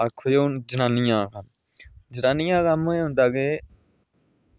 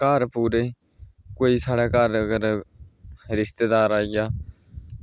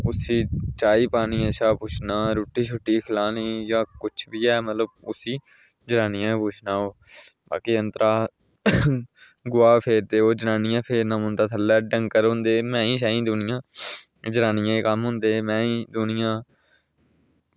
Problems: none marked